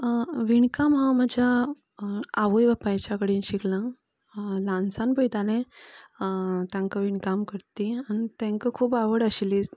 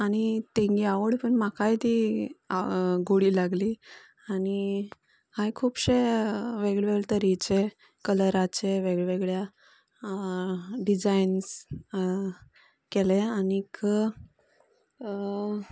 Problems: constant background noise